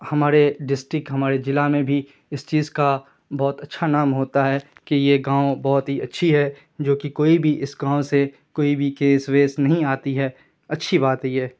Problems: none marked